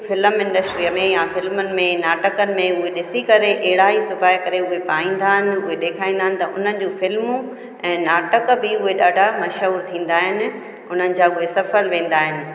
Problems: constant background noise, echo